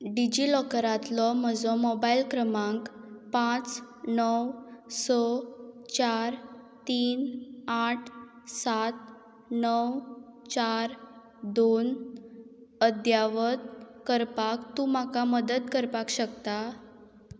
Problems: constant background noise